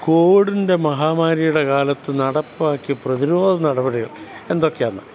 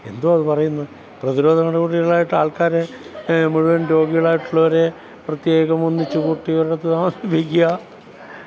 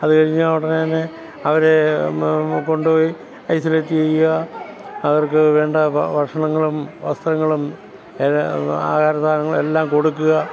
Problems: constant background noise, background conversations at intervals